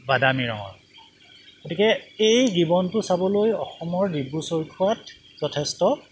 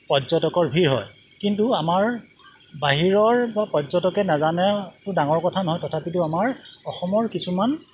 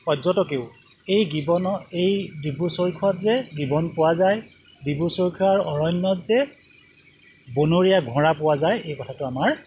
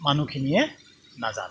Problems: background sounds at intervals